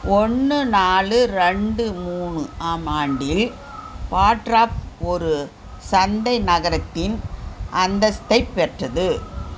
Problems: none marked